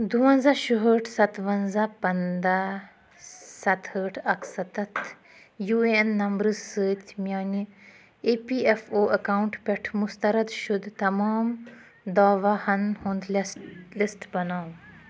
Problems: background sounds at intervals